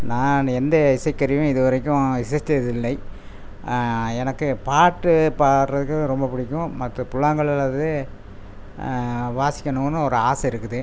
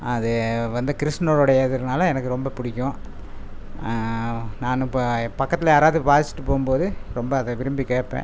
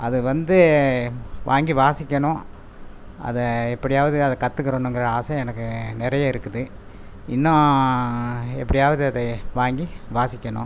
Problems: constant background noise